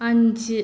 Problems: background sounds at intervals